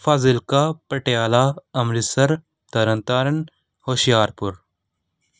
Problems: none marked